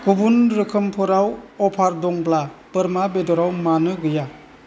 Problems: constant background noise